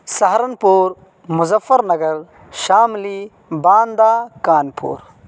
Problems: none marked